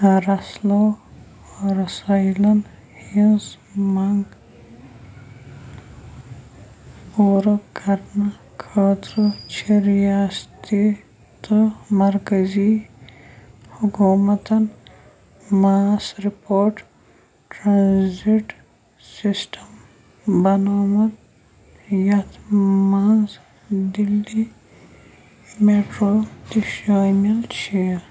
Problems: background sounds at intervals